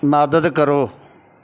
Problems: background sounds at intervals